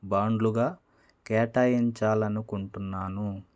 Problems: none marked